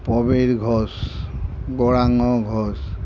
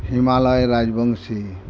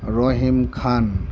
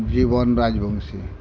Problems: constant background noise